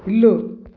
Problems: background sounds at intervals